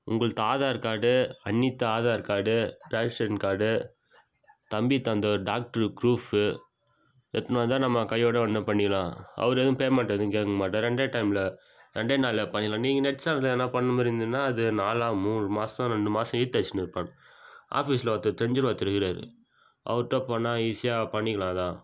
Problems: background sounds at intervals